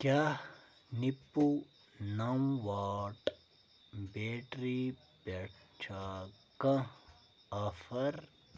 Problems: low volume